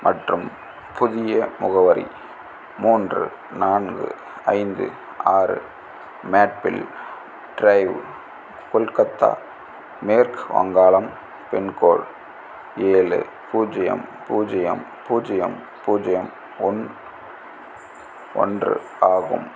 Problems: constant background noise